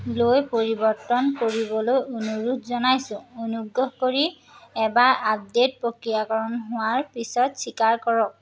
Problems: none marked